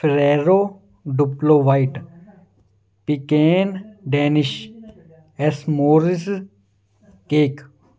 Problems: background sounds at intervals